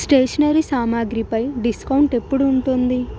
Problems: constant background noise